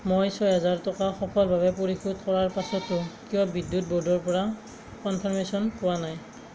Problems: constant background noise